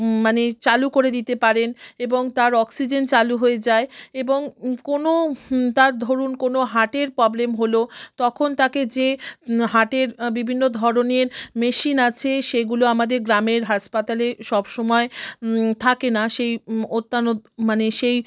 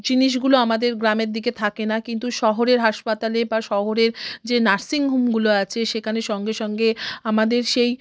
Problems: none marked